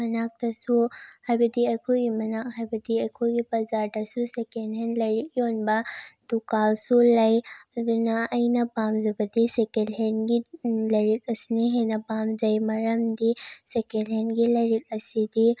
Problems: none marked